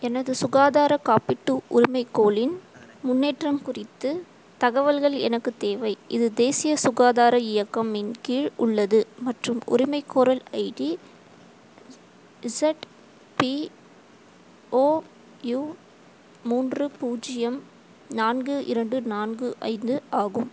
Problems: constant background noise